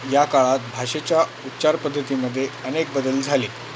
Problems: constant background noise